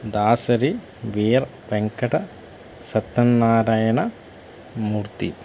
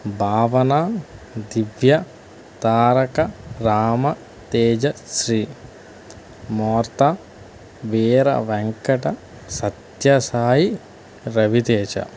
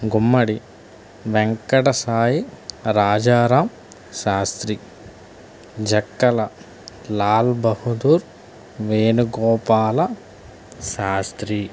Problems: none marked